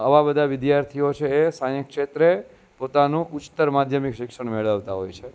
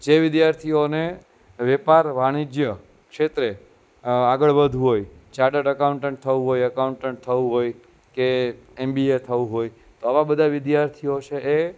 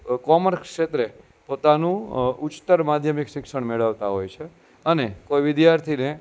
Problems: constant background noise